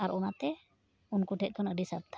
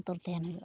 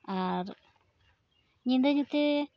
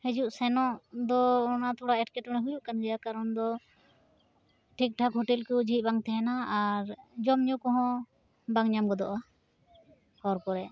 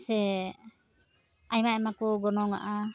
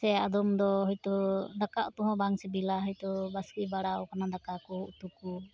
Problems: constant background noise, background conversations at intervals